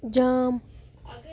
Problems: none marked